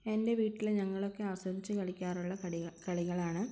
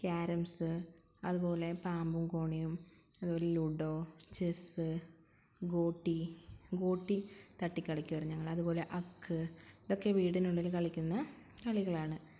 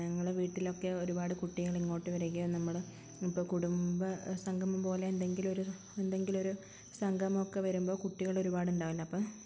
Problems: constant background noise